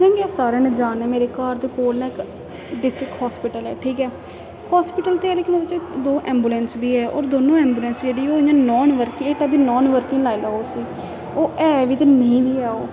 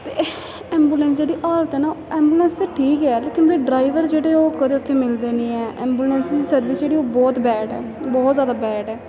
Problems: constant background noise